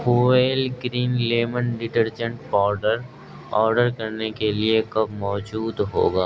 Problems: constant background noise